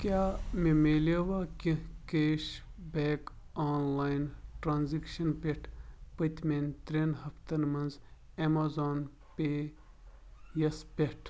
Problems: background sounds at intervals